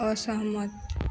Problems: none marked